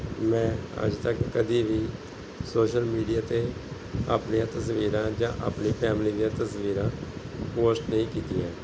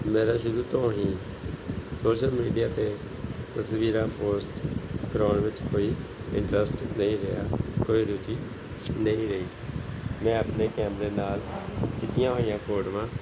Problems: background sounds at intervals